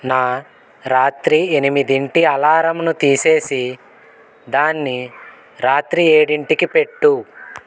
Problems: constant background noise